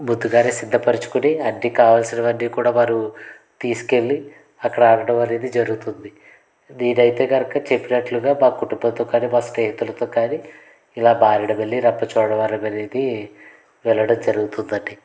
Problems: background sounds at intervals, background conversations at intervals